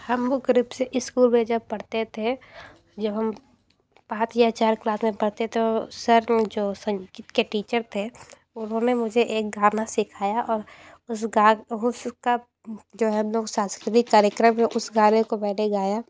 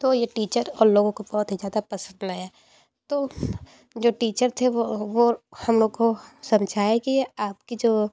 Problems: constant background noise, background conversations at intervals